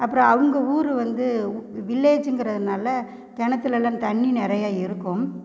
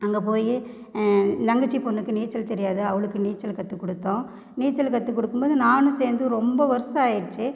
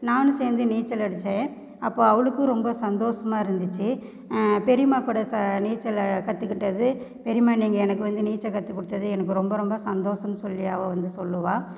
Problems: none marked